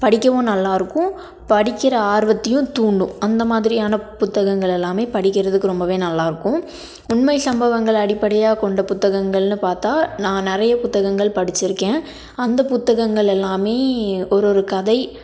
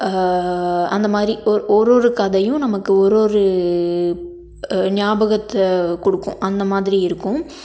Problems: none marked